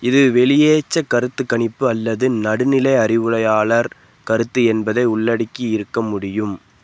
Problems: none marked